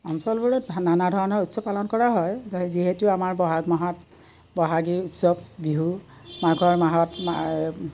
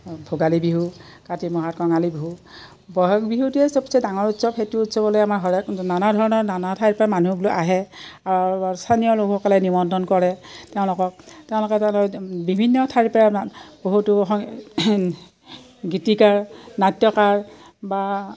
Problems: none marked